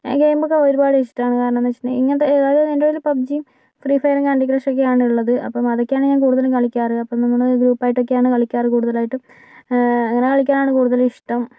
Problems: none marked